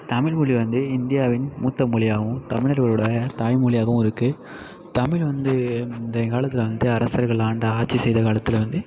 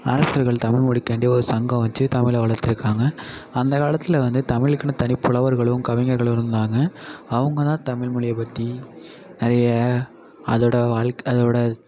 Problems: constant background noise